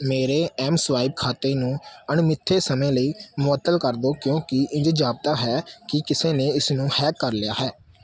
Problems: none marked